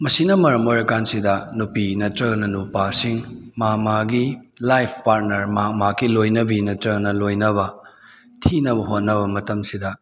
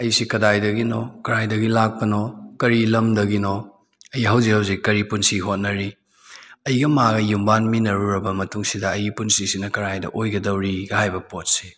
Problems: none marked